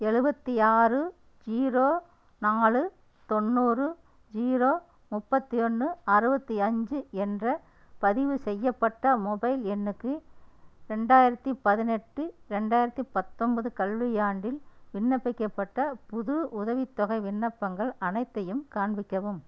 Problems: none marked